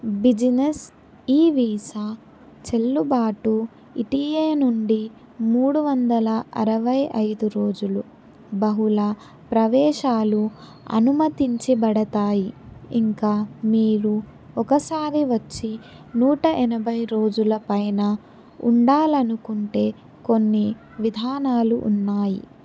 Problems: background conversations at intervals